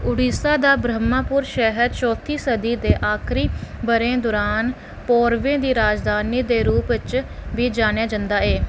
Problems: none marked